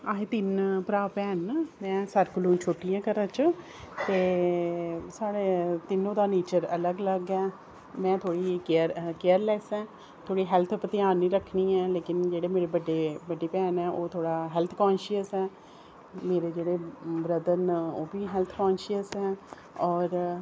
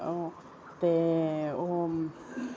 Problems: none marked